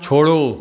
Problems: constant background noise, echo